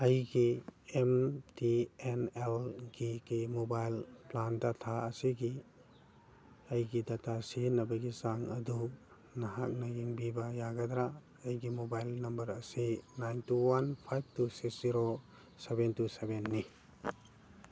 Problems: background sounds at intervals